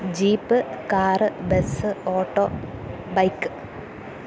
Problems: constant background noise, low volume